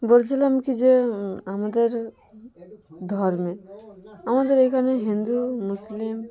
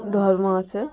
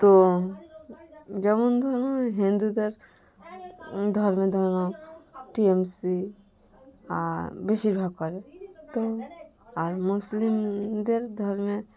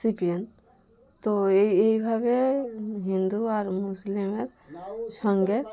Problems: constant background noise, continuous background conversations